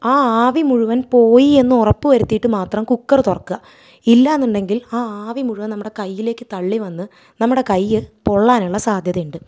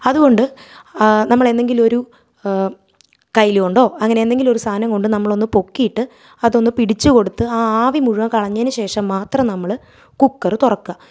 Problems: none marked